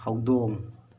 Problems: background sounds at intervals